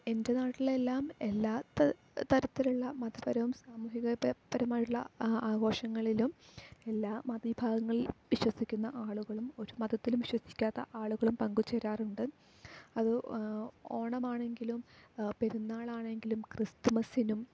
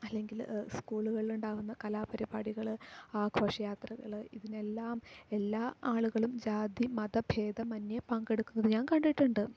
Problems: low volume